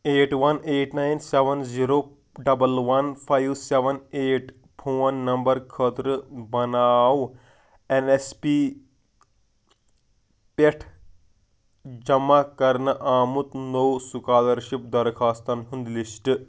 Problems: background sounds at intervals